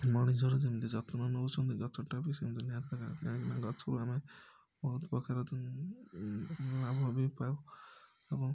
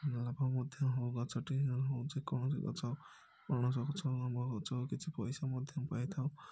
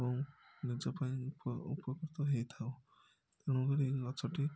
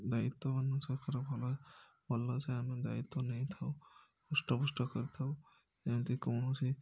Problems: background sounds at intervals, low volume